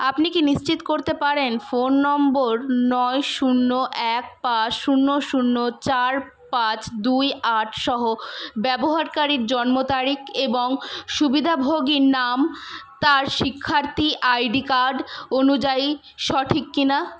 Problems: none marked